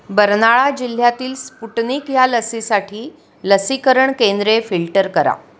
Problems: none marked